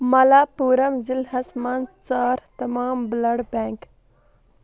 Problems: constant background noise